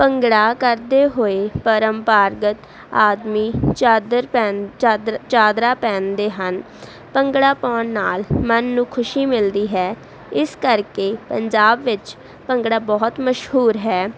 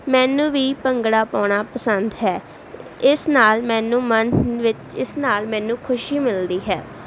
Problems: none marked